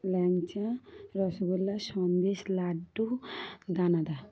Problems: background sounds at intervals, background conversations at intervals